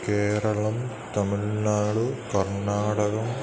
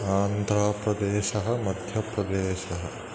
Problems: constant background noise